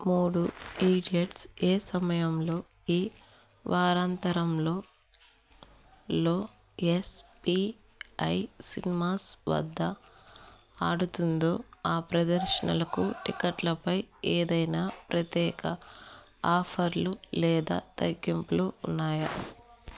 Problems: background conversations at intervals